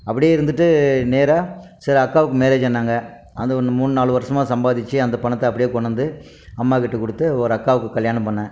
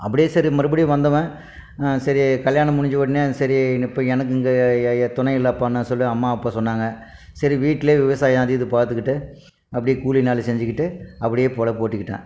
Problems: none marked